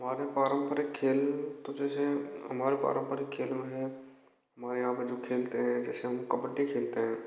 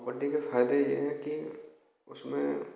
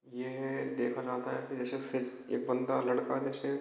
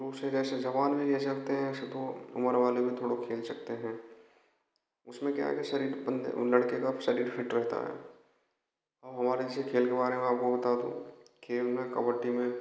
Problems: background sounds at intervals, echo